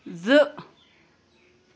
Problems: none marked